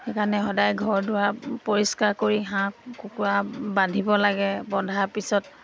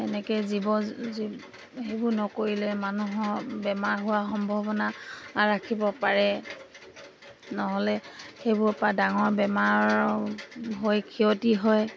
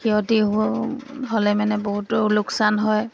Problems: background sounds at intervals